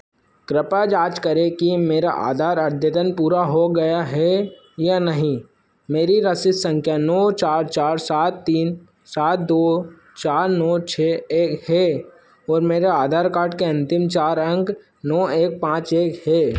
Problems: constant background noise